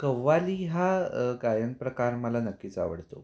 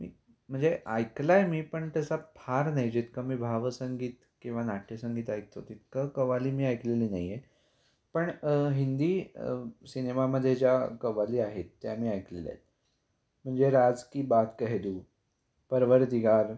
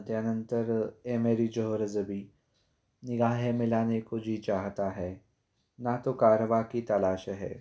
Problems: constant background noise